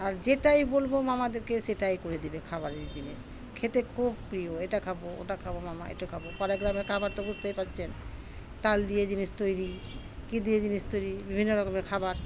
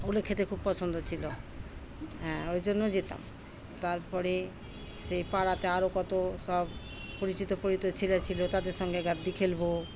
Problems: constant background noise, background conversations at intervals